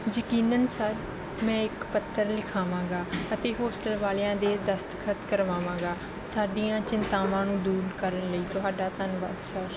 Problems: background sounds at intervals